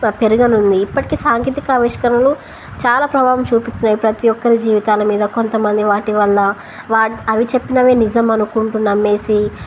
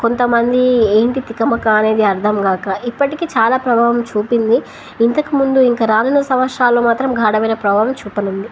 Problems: none marked